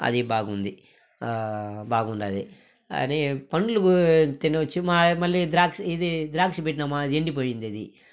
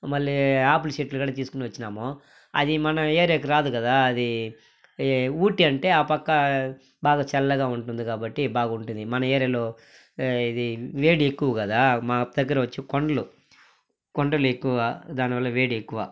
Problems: background sounds at intervals, background conversations at intervals